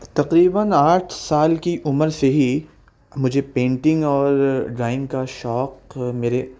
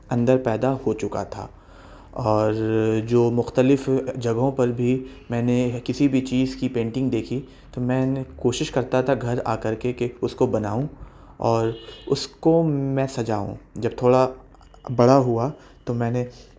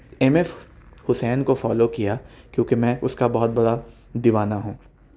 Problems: none marked